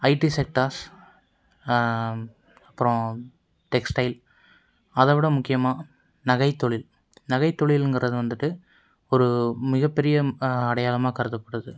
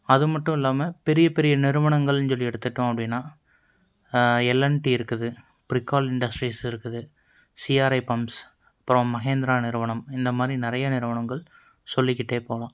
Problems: none marked